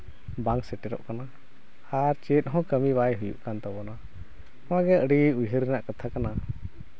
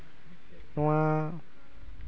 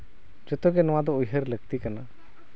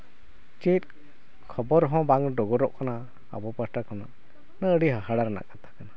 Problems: none marked